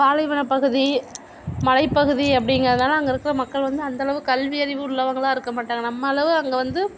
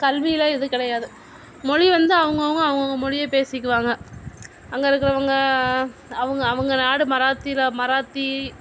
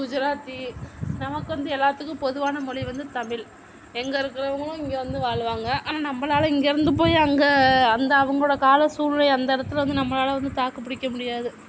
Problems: none marked